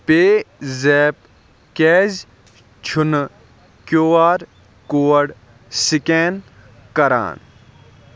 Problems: background sounds at intervals